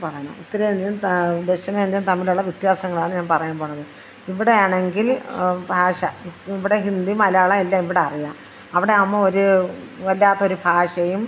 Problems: background conversations at intervals